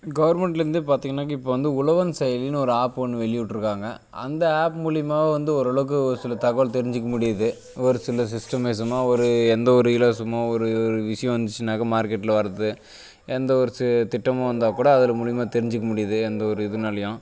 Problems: none marked